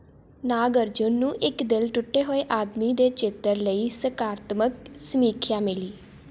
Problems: constant background noise